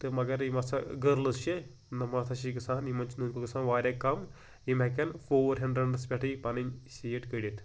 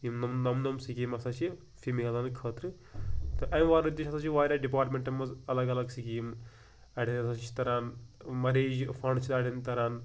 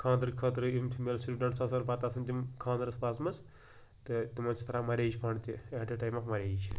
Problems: none marked